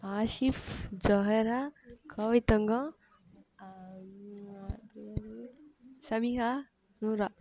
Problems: background conversations at intervals